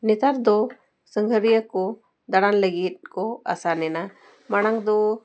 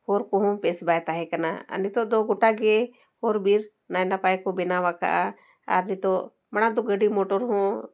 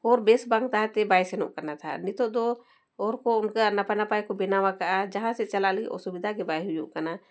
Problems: none marked